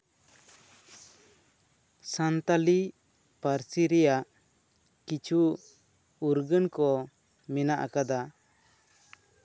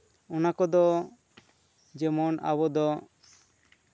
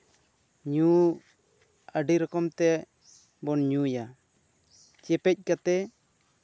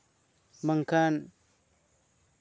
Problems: none marked